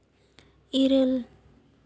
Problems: none marked